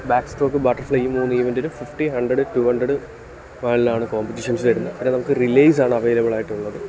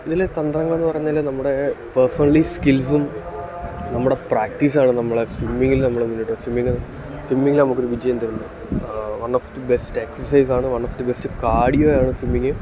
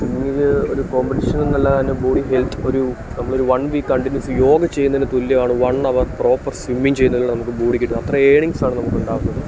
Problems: constant background noise, low volume